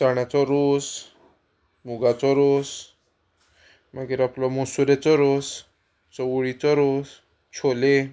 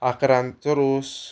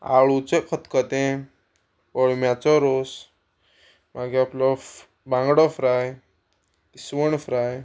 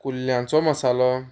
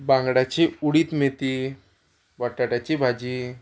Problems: none marked